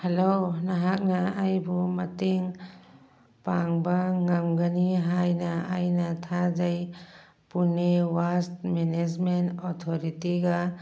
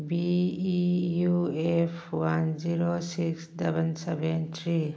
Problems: background sounds at intervals